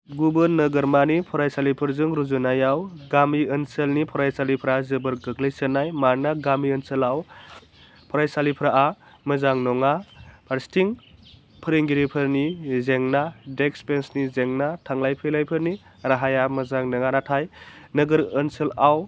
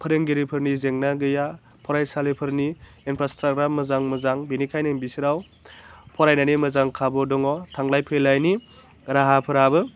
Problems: low volume